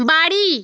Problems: constant background noise